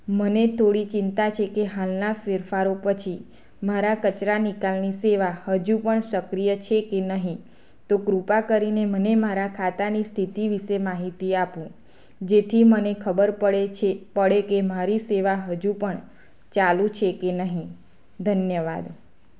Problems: constant background noise